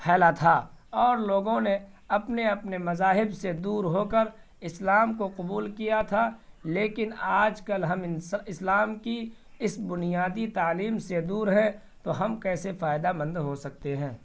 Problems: constant background noise